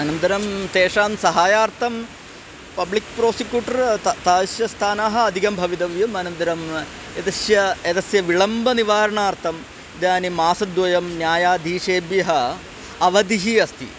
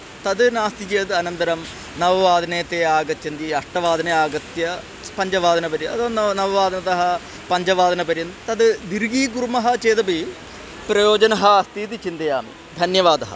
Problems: constant background noise